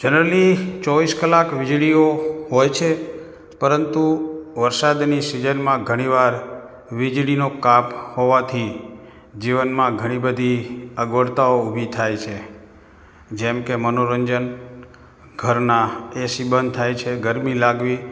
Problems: background sounds at intervals